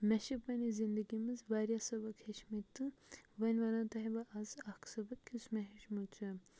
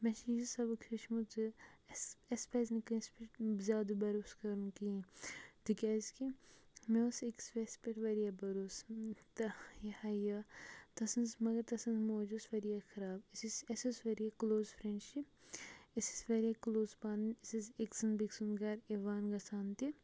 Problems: background sounds at intervals, low volume